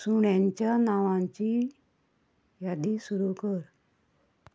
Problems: constant background noise